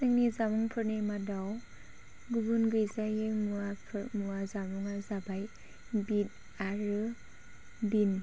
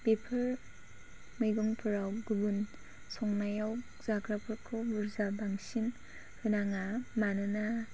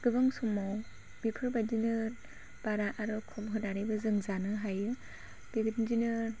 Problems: none marked